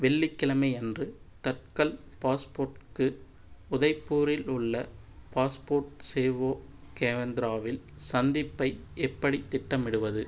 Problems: none marked